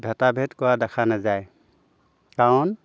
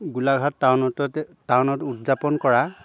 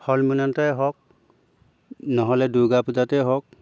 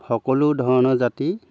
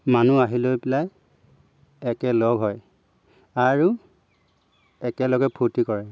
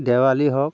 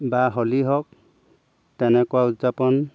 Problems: background sounds at intervals